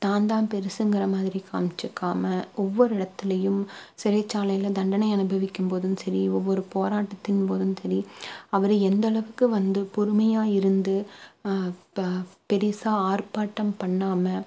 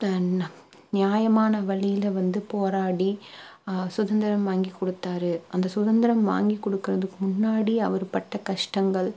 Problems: low volume